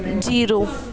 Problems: continuous background conversations